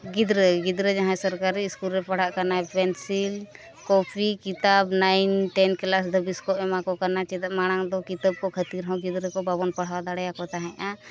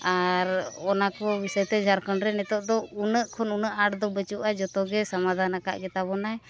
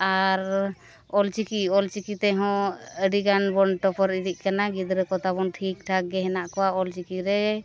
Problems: background sounds at intervals